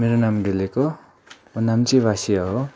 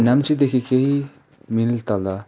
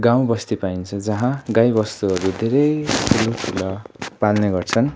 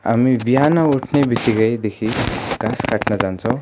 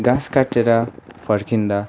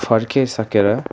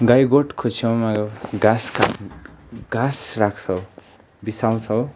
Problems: none marked